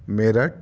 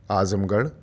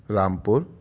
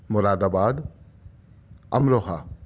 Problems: background sounds at intervals